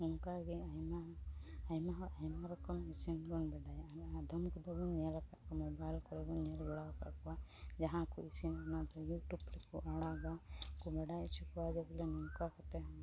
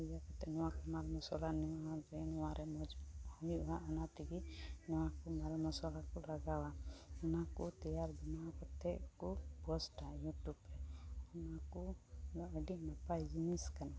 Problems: constant background noise, low volume